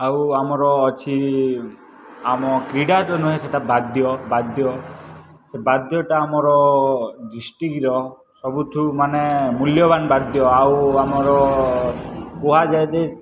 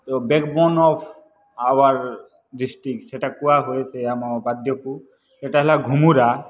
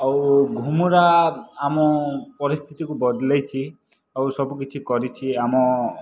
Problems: background sounds at intervals